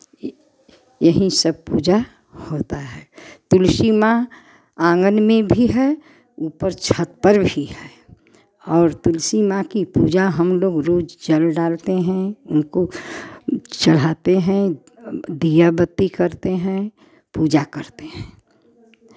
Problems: background sounds at intervals